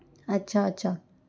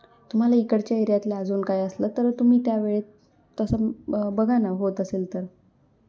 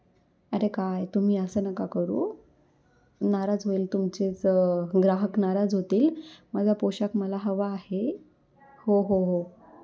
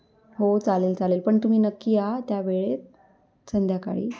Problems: none marked